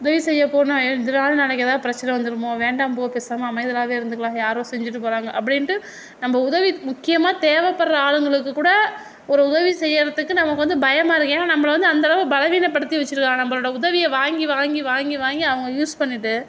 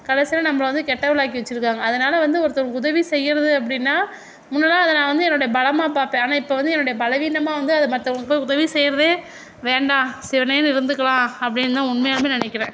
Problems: none marked